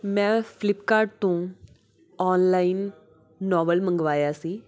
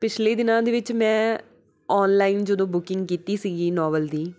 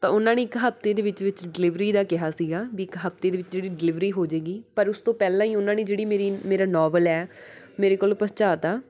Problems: background sounds at intervals